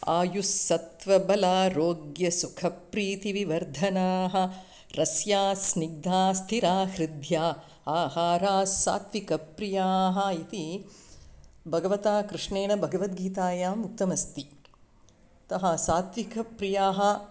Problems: none marked